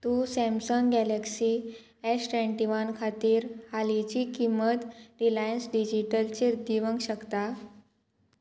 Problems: constant background noise